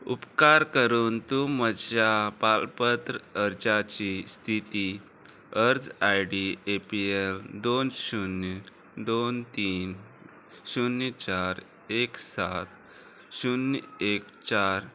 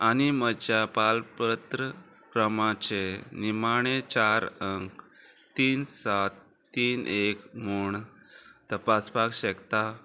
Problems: constant background noise